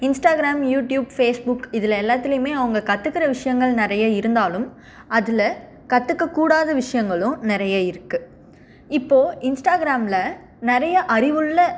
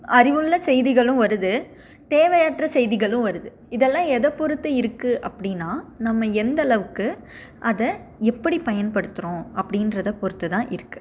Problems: none marked